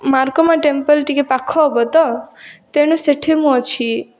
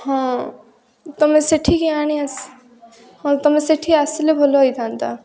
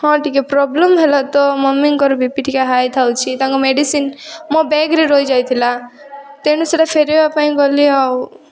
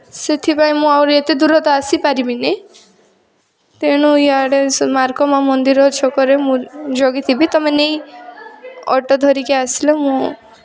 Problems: continuous background conversations